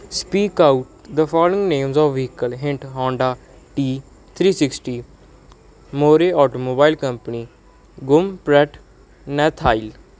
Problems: background sounds at intervals